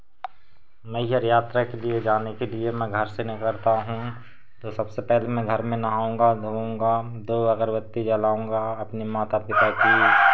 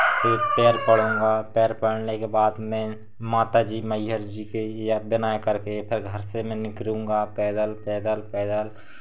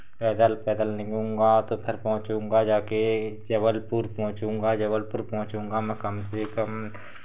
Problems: constant background noise